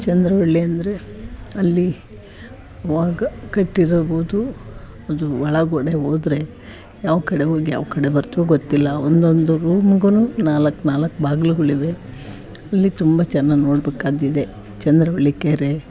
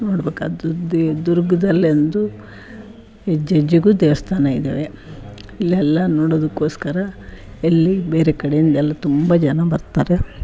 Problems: background sounds at intervals